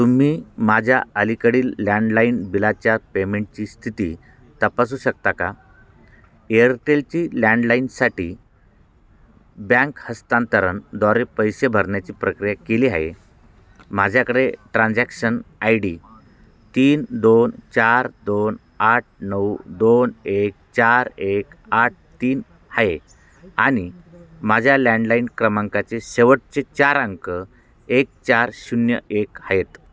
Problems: constant background noise, background conversations at intervals